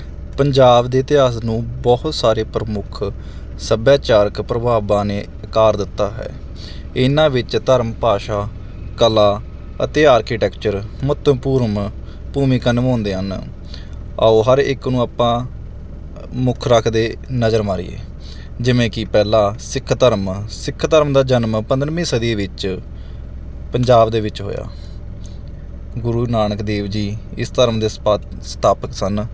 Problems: background sounds at intervals